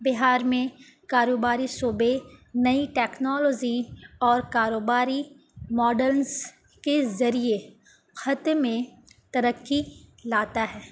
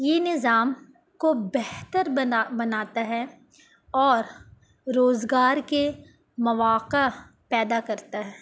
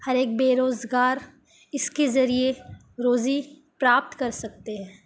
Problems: none marked